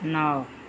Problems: none marked